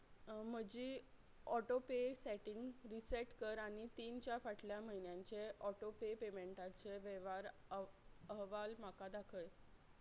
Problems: none marked